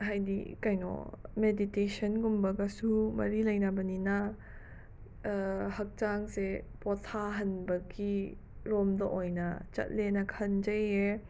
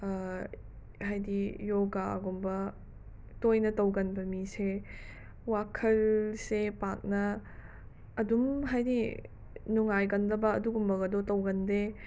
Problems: background sounds at intervals